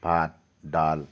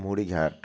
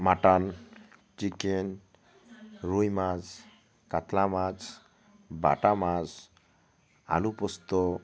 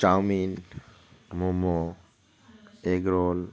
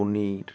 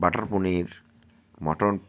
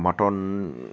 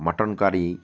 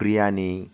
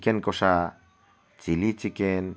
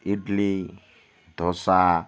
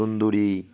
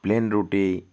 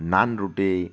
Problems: constant background noise, continuous background conversations